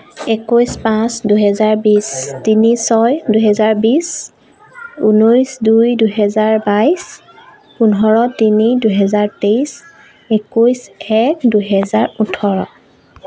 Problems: background sounds at intervals